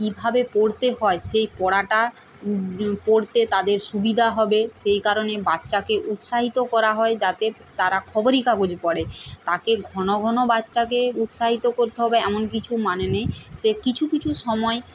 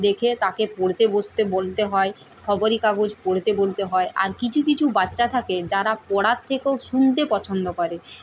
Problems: none marked